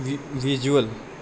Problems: none marked